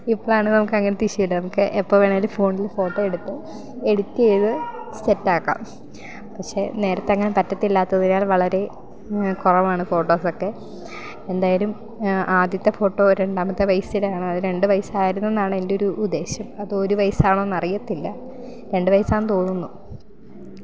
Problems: background conversations at intervals